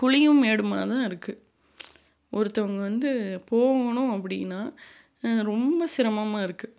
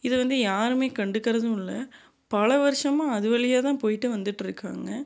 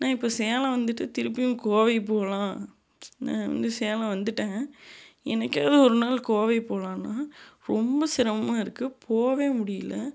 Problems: none marked